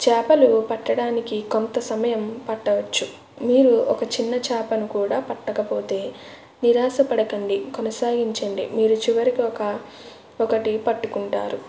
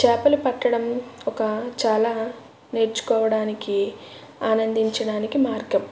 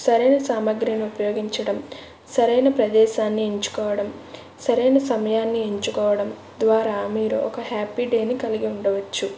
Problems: none marked